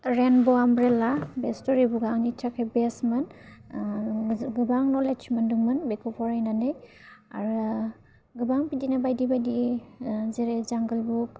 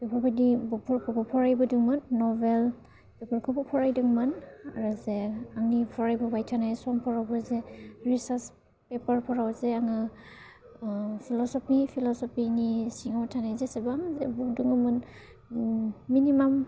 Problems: low volume